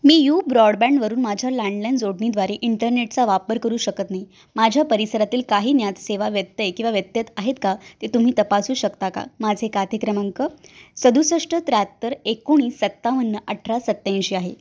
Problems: none marked